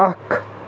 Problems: constant background noise